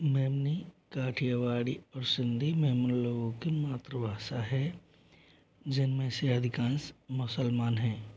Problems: echo